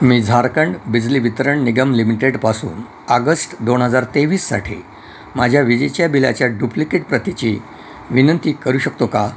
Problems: constant background noise